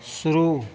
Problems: constant background noise